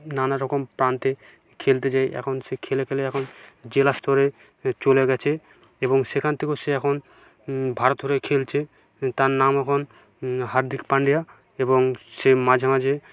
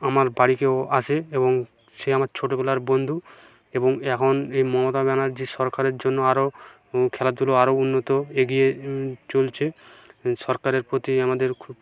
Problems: background sounds at intervals